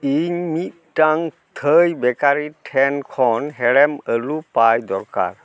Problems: none marked